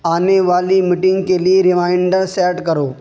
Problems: constant background noise